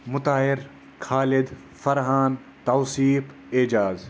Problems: constant background noise